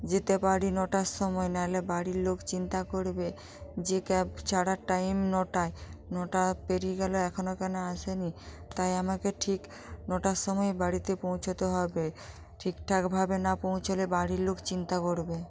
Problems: constant background noise, continuous background conversations